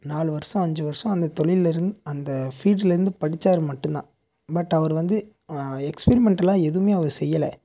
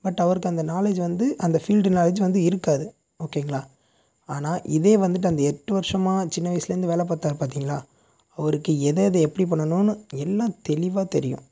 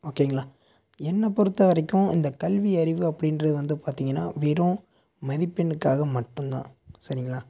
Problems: none marked